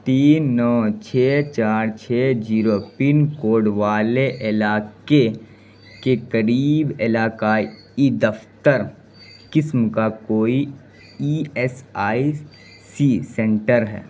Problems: constant background noise